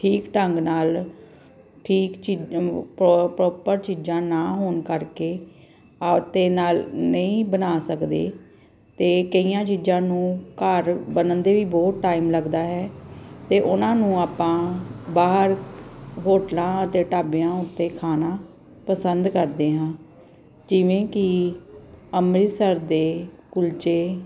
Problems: none marked